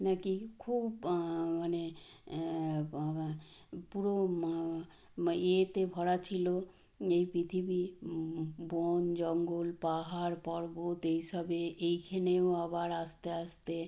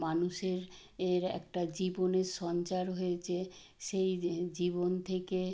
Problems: background sounds at intervals